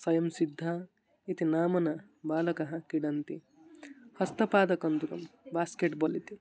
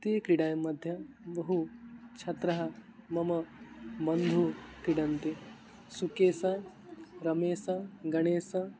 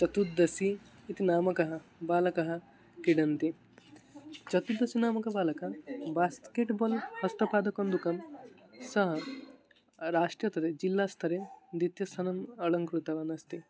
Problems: constant background noise, continuous background conversations